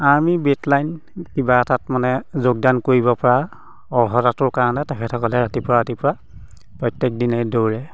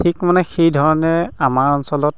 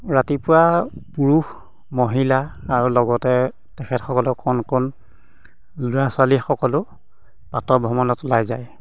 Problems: background sounds at intervals